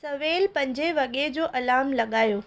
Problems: constant background noise